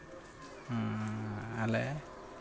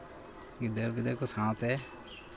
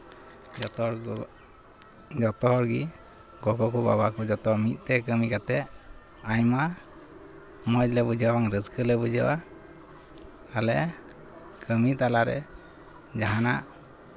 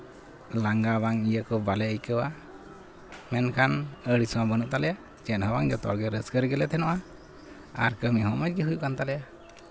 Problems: constant background noise